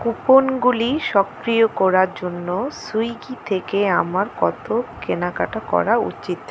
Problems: none marked